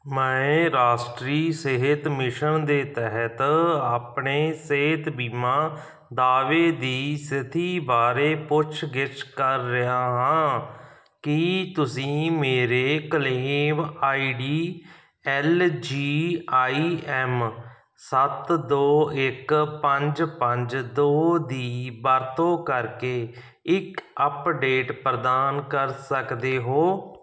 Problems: background sounds at intervals